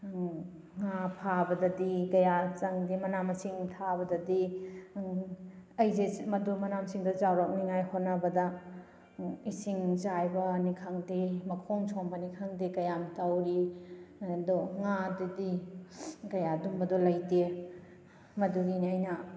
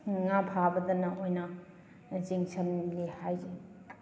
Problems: background sounds at intervals